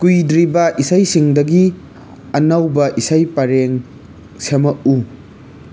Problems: constant background noise